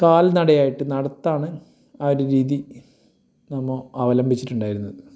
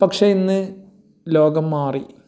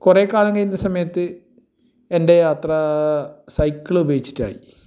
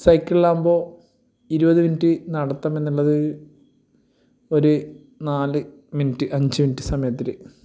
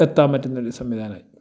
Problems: none marked